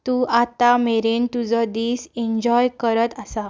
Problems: background sounds at intervals